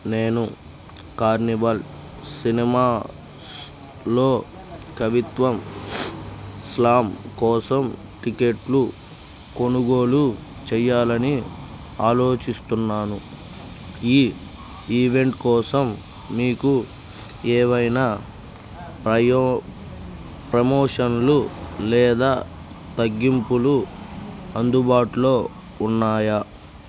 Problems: none marked